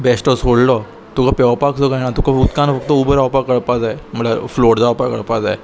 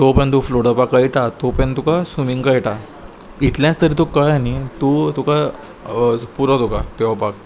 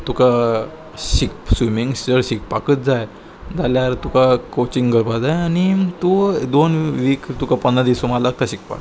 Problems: constant background noise